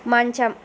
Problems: none marked